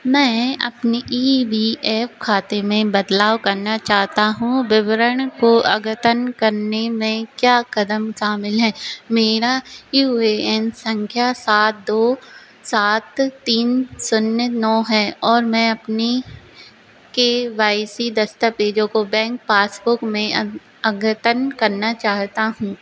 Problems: none marked